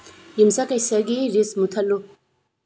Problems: low volume